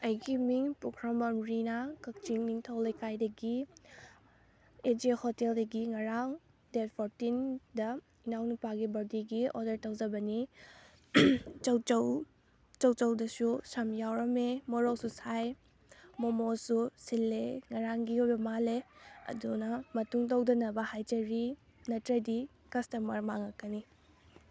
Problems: none marked